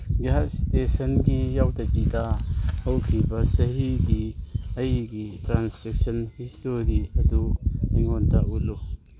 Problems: constant background noise